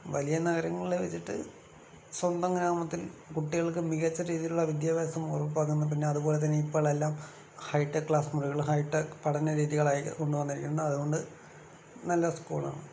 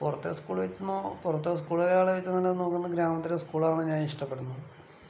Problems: constant background noise, low volume